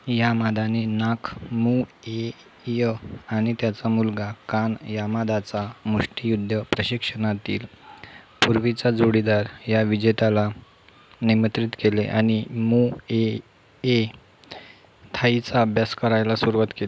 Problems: none marked